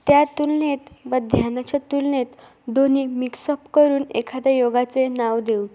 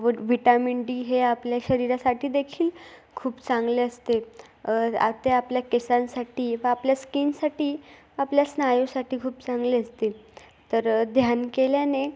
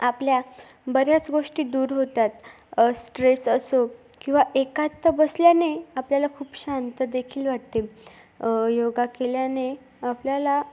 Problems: background sounds at intervals